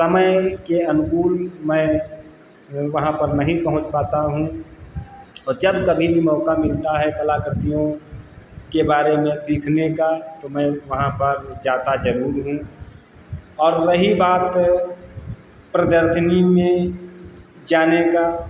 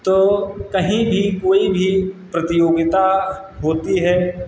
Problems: constant background noise